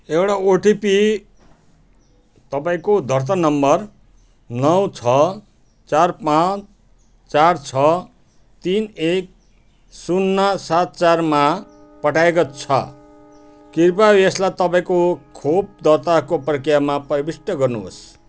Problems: constant background noise